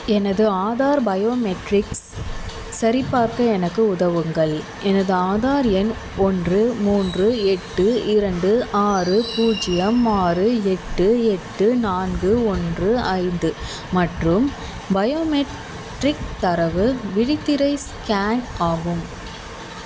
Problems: constant background noise